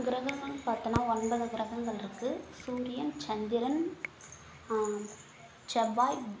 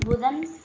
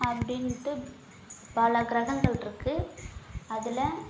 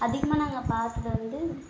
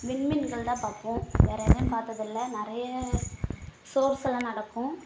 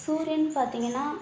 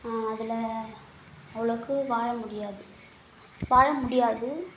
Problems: constant background noise